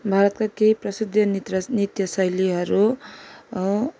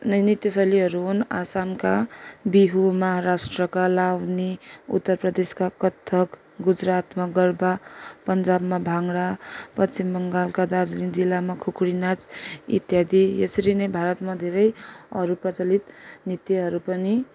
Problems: none marked